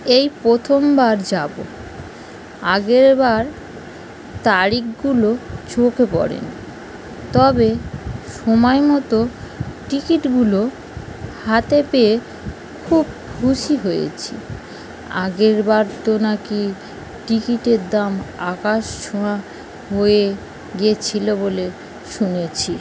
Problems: none marked